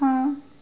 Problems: constant background noise